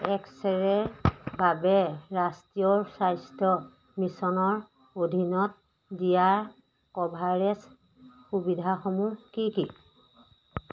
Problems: none marked